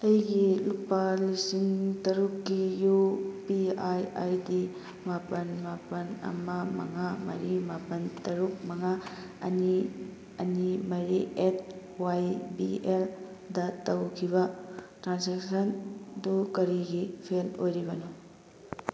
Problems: none marked